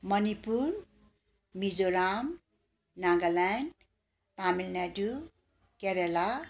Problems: continuous background conversations